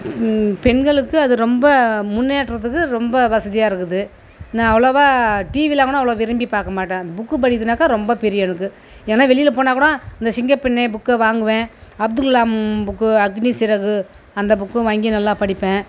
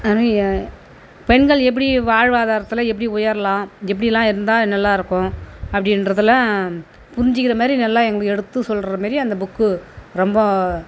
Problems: background sounds at intervals